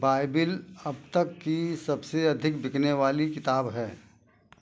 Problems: background sounds at intervals